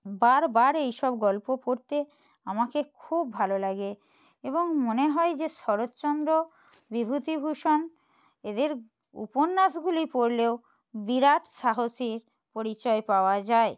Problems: none marked